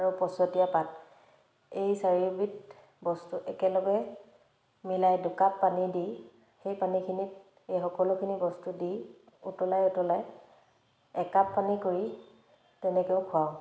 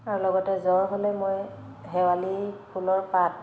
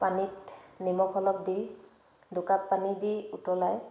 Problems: background sounds at intervals